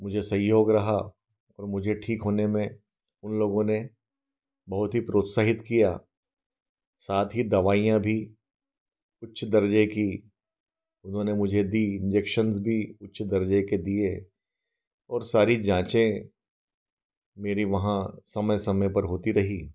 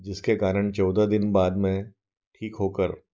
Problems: none marked